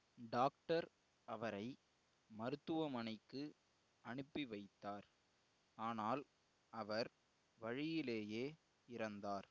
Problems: low volume